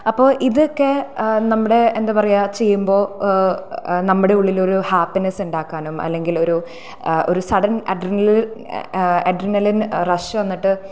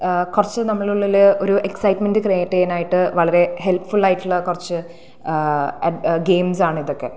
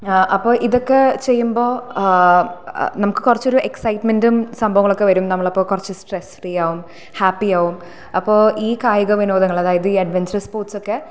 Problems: none marked